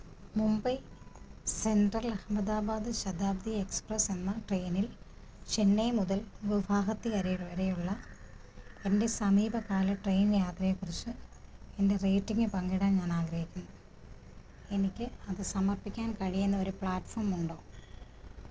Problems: constant background noise, low volume